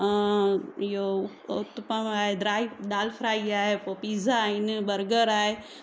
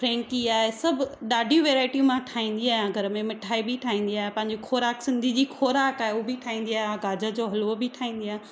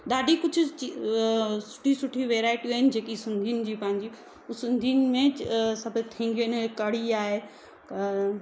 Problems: constant background noise, background conversations at intervals